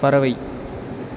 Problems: constant background noise